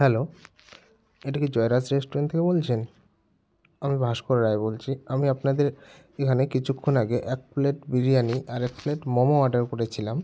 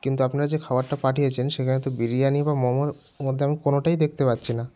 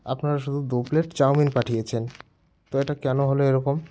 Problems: background sounds at intervals